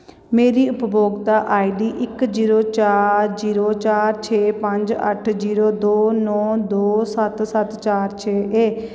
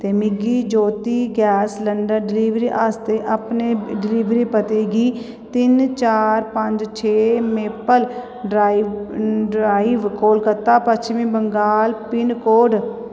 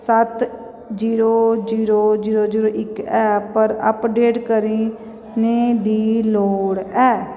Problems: echo